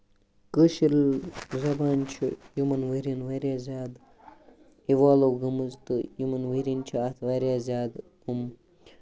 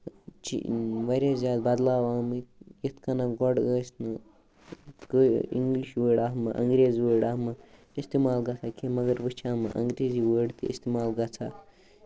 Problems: none marked